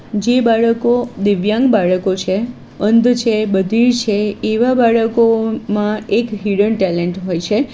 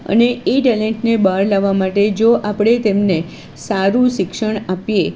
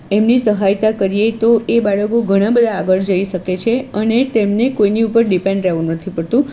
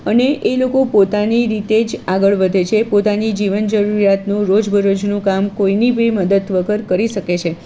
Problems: constant background noise